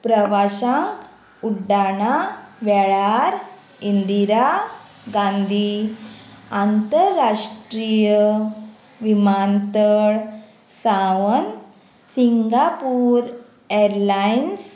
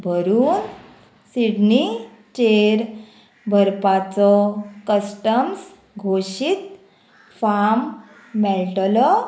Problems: constant background noise